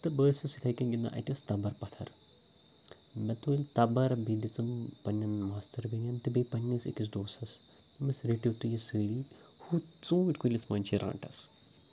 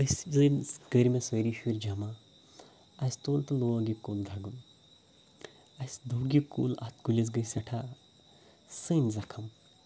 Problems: background sounds at intervals